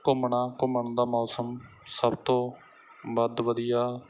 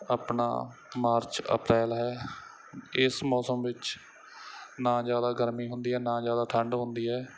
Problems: background sounds at intervals